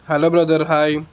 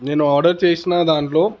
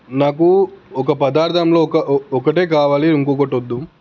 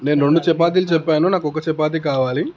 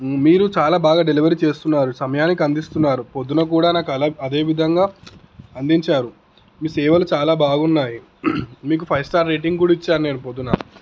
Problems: background sounds at intervals